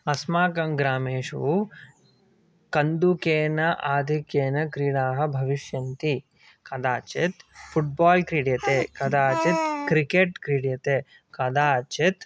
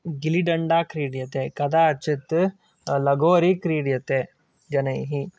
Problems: background conversations at intervals